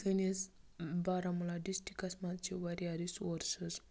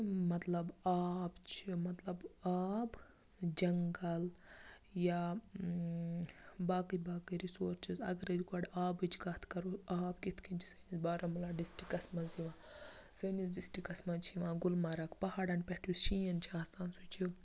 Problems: low volume